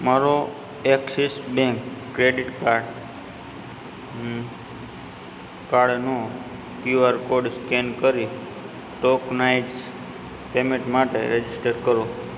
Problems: background sounds at intervals